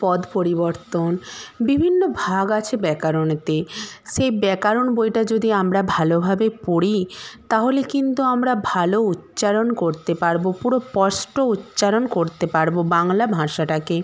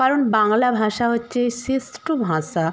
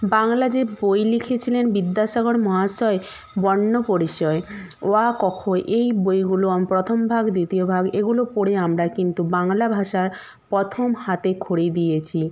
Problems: background sounds at intervals